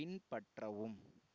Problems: low volume